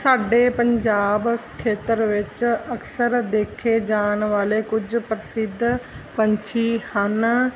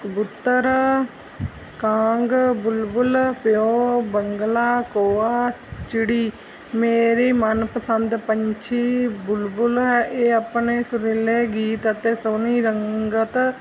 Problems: none marked